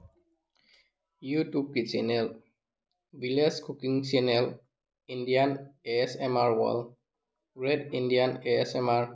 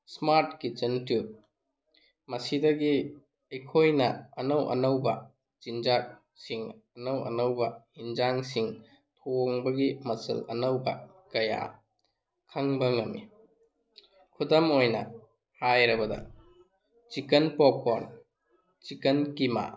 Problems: none marked